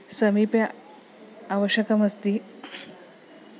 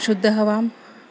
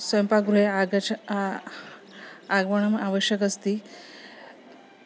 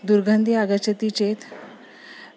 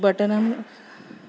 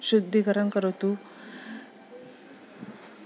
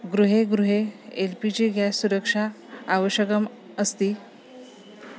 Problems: background sounds at intervals